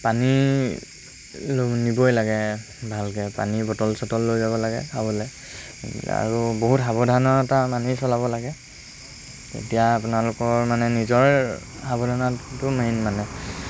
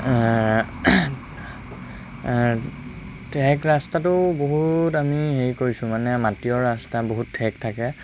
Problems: constant background noise